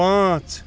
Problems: constant background noise